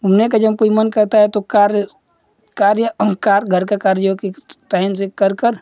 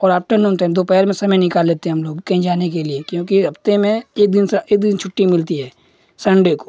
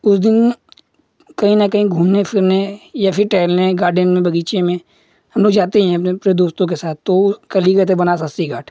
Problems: constant background noise